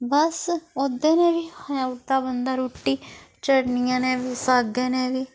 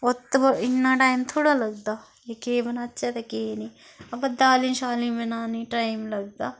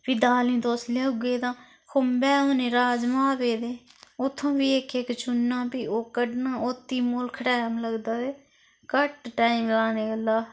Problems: constant background noise